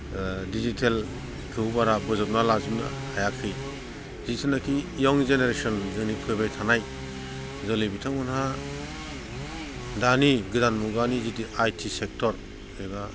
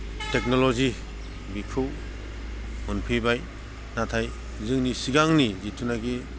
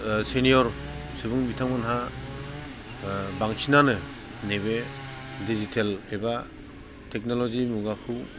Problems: constant background noise